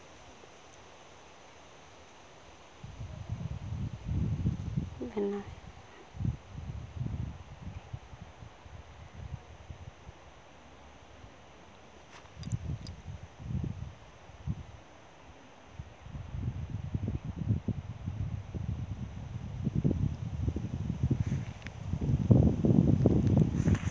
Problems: constant background noise